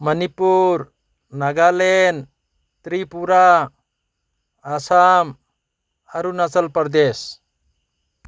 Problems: none marked